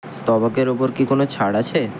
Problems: none marked